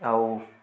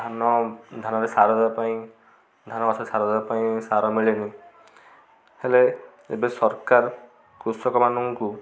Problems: constant background noise, continuous background conversations